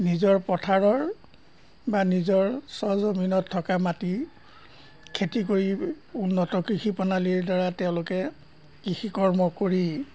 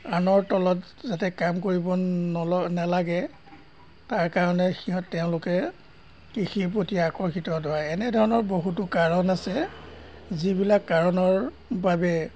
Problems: background sounds at intervals